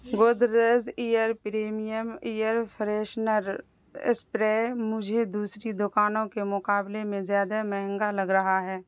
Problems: constant background noise